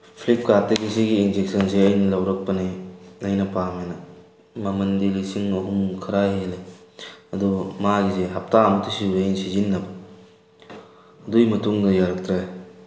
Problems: background sounds at intervals